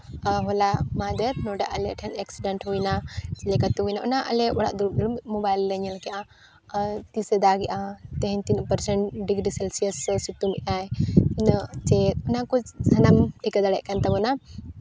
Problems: none marked